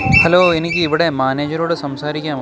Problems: constant background noise